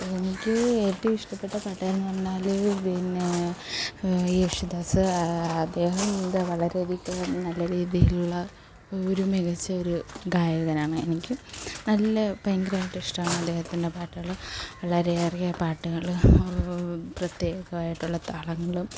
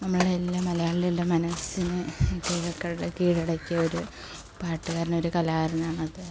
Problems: constant background noise, low volume